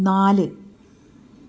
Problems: none marked